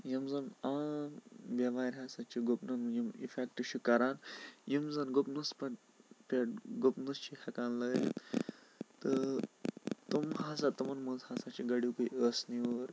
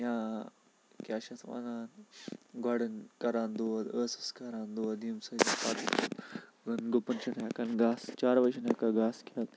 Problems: constant background noise